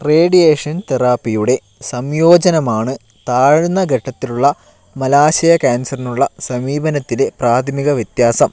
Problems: none marked